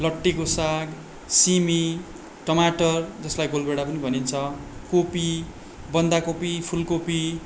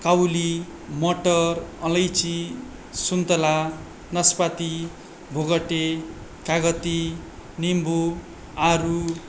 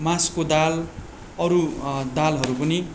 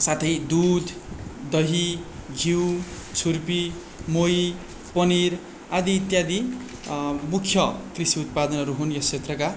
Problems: none marked